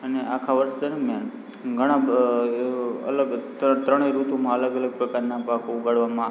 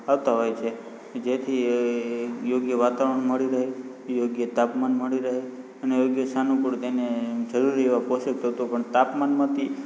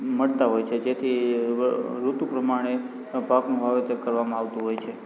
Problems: constant background noise, background conversations at intervals